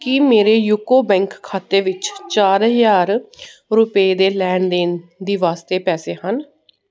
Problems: none marked